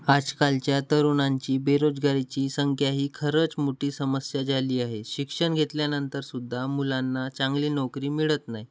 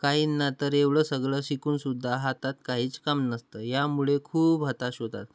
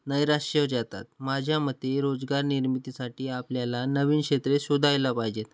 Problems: background sounds at intervals